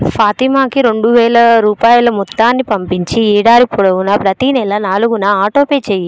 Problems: background sounds at intervals